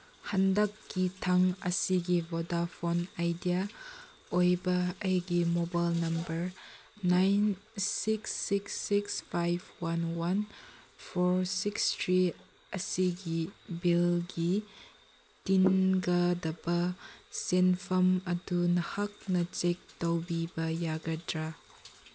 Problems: none marked